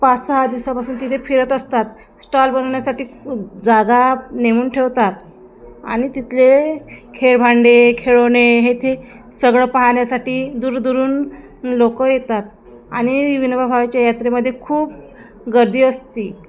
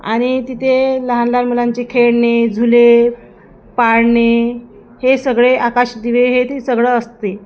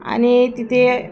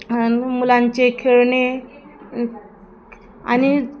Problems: none marked